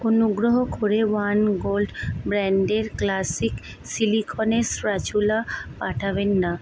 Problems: none marked